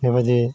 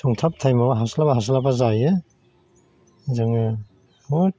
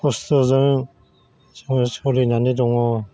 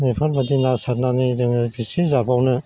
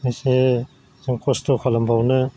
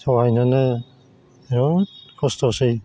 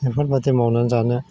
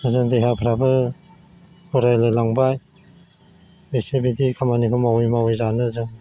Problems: constant background noise